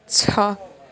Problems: none marked